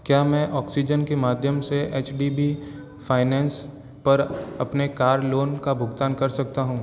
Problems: constant background noise